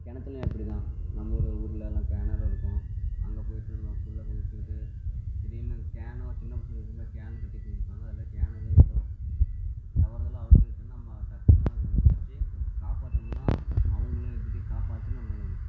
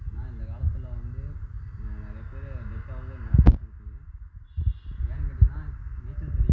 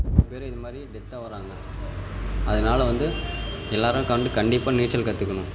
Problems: constant background noise, low volume